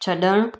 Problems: none marked